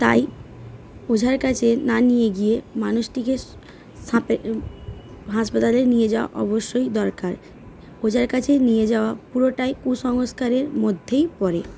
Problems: background sounds at intervals, background conversations at intervals